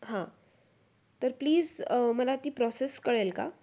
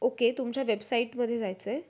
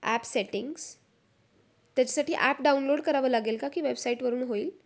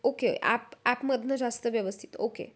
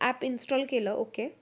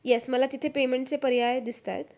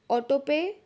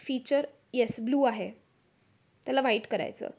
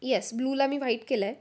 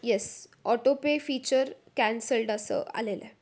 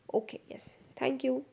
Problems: constant background noise, background conversations at intervals